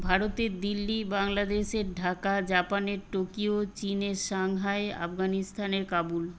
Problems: constant background noise